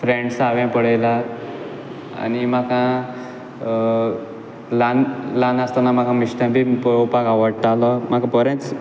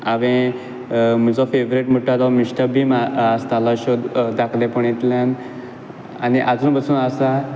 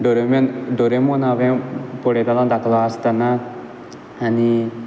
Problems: constant background noise